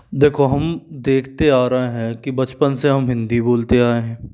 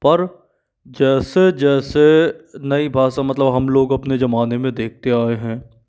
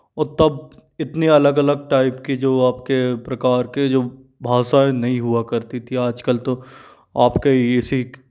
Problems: background sounds at intervals